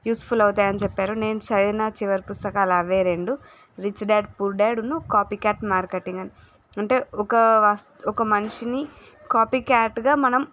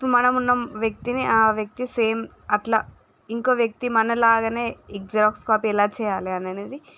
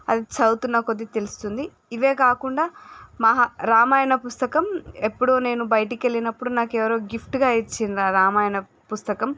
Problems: none marked